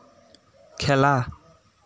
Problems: constant background noise